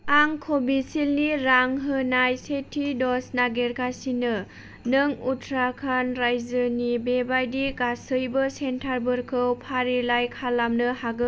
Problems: none marked